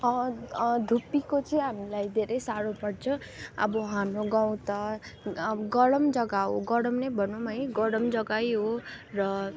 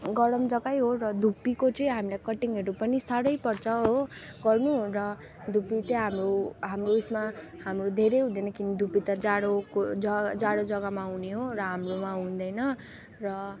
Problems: constant background noise, background conversations at intervals